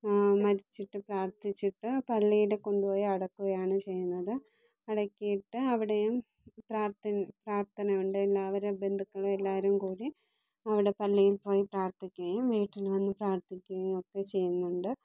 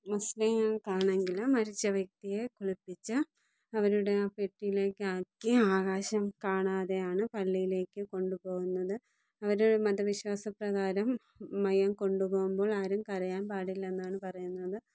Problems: low volume